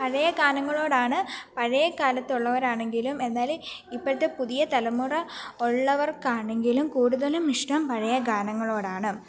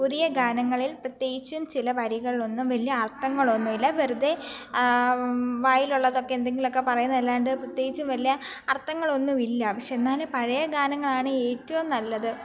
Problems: background conversations at intervals